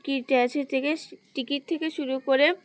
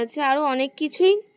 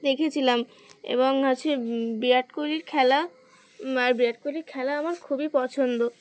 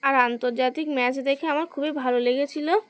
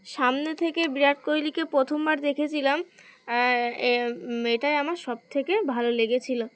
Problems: none marked